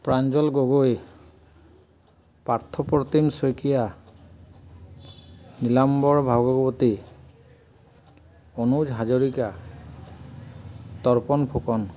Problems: none marked